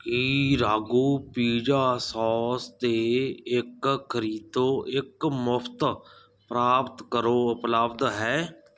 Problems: none marked